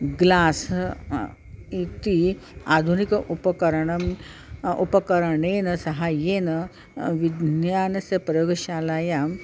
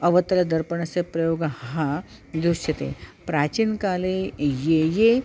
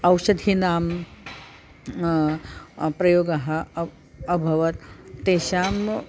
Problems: none marked